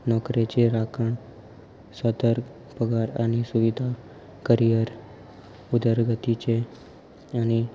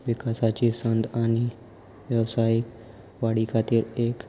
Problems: constant background noise